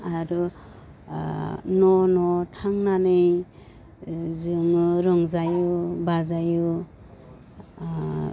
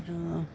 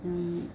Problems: constant background noise